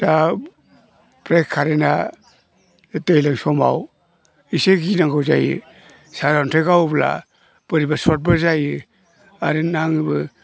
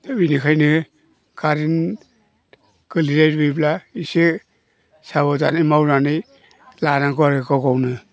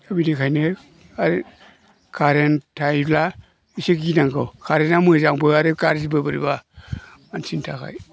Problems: low volume